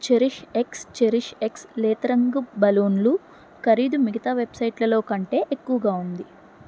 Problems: none marked